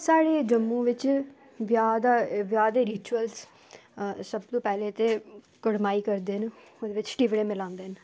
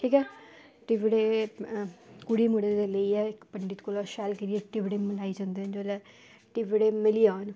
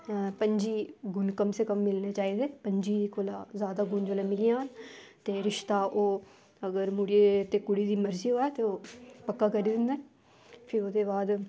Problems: constant background noise